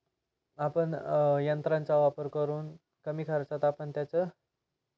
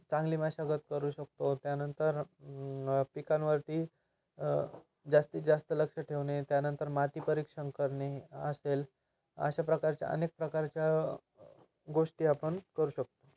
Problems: none marked